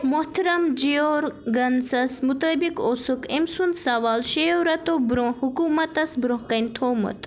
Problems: constant background noise